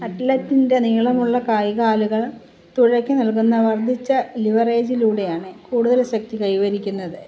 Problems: background sounds at intervals